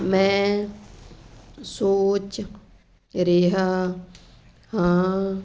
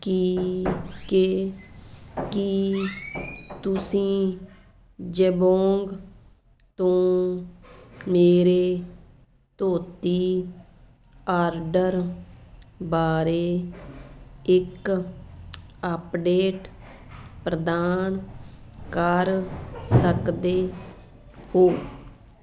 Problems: constant background noise